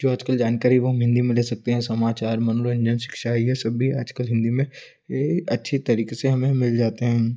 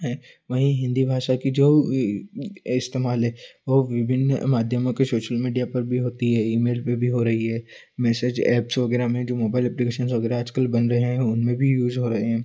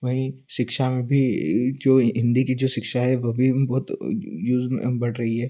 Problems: constant background noise